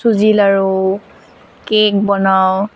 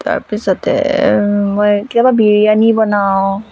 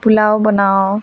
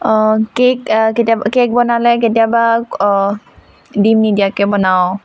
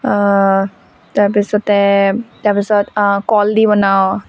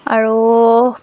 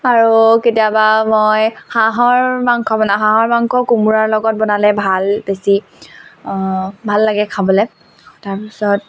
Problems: none marked